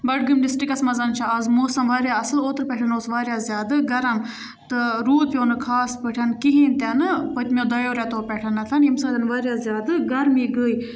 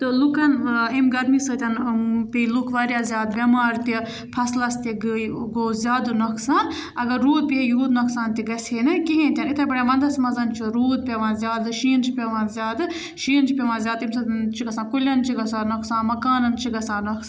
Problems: background sounds at intervals, background conversations at intervals